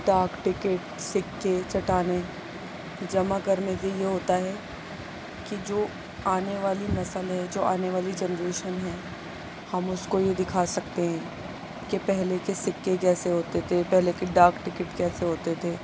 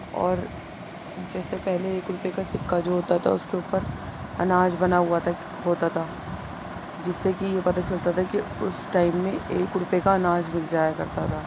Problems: constant background noise, low volume